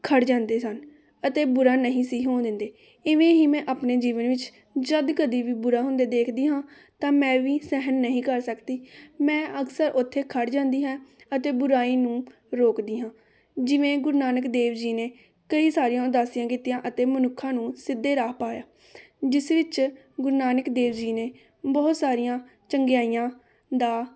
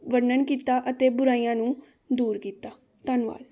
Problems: continuous background conversations